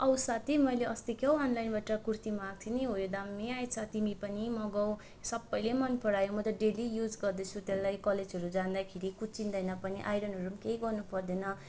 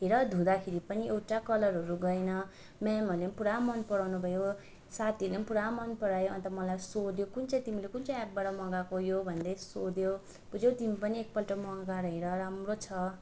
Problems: none marked